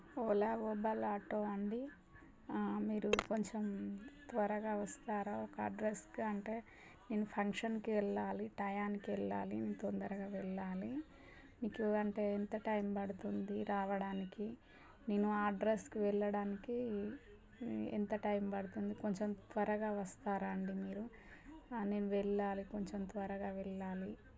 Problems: continuous background conversations